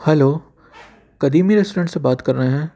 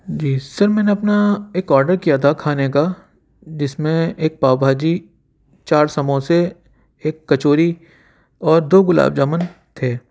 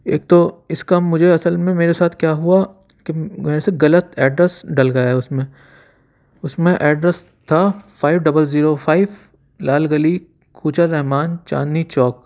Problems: constant background noise